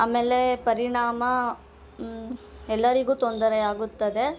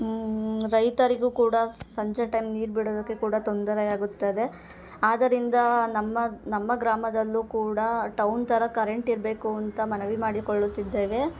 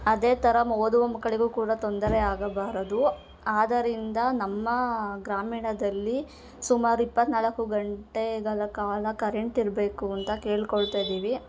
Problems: background sounds at intervals